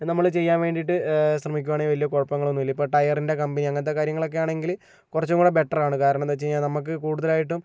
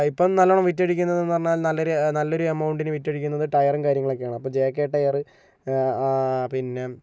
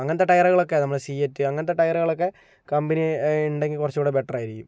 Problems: none marked